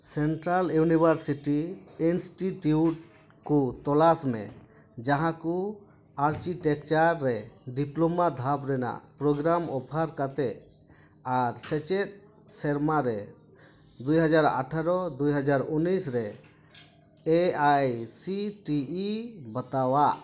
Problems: constant background noise